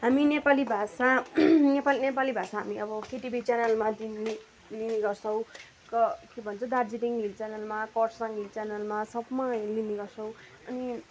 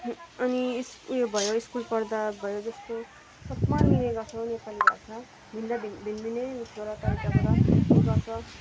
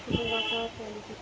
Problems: none marked